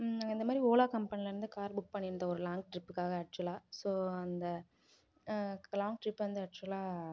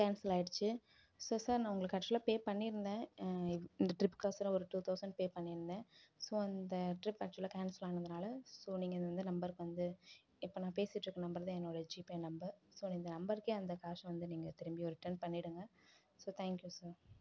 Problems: low volume